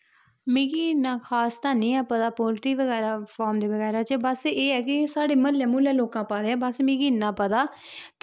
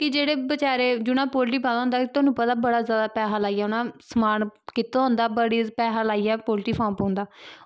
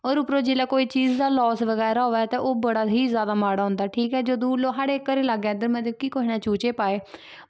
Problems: background sounds at intervals